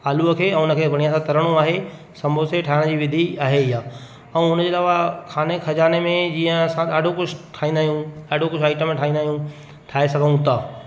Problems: constant background noise, echo